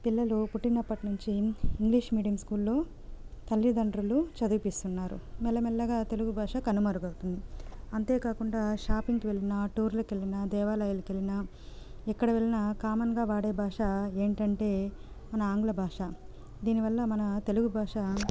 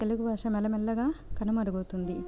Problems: none marked